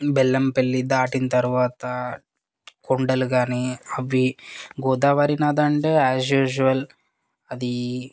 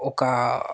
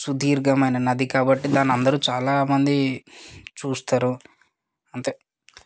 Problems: background sounds at intervals